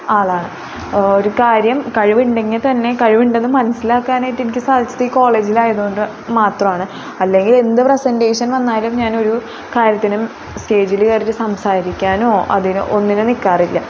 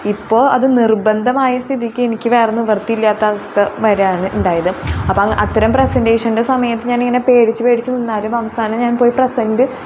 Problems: constant background noise